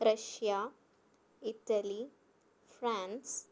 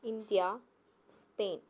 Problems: low volume